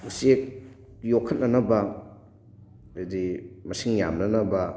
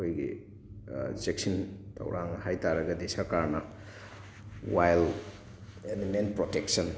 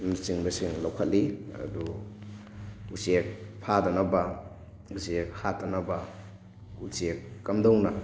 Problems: constant background noise